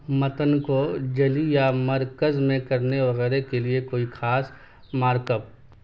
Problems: constant background noise